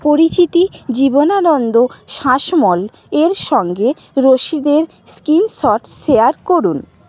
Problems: background conversations at intervals